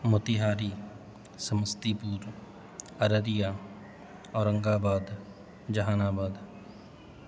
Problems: constant background noise